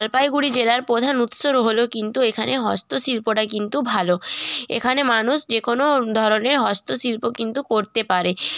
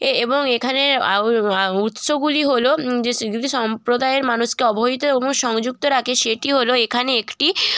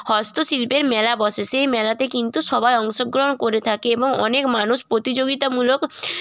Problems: background sounds at intervals